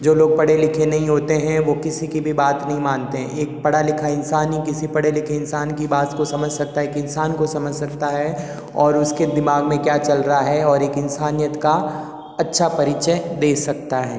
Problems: background sounds at intervals, echo